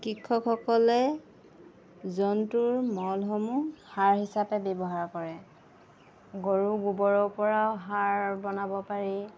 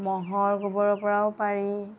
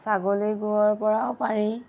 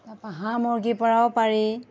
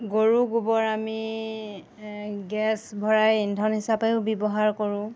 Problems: none marked